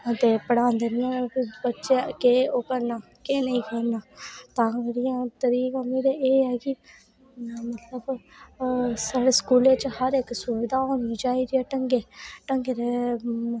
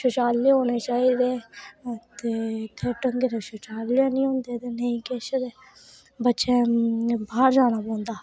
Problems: none marked